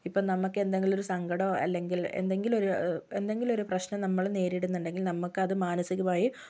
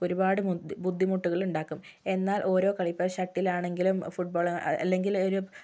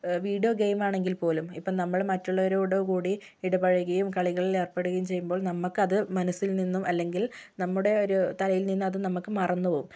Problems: none marked